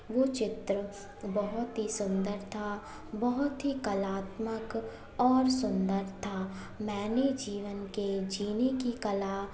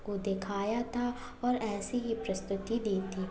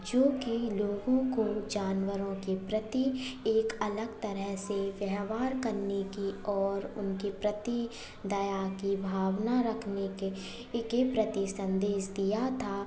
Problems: none marked